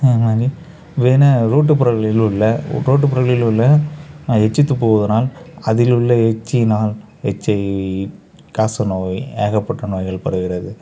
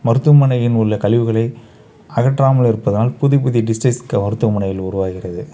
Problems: none marked